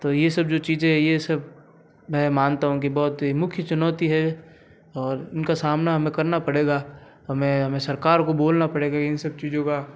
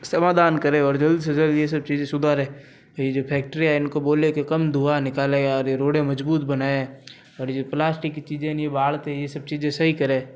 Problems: none marked